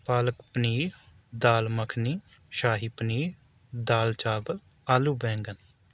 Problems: none marked